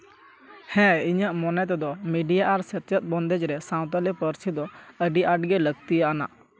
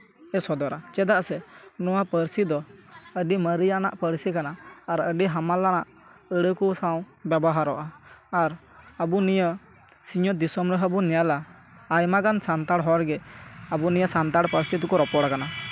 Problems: continuous background conversations